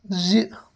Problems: constant background noise